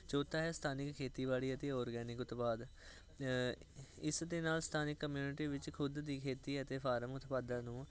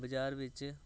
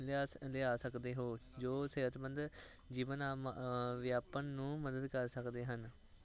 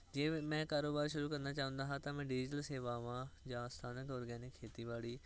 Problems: none marked